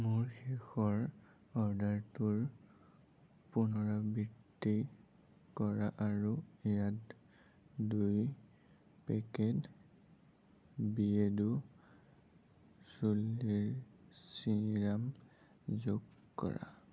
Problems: low volume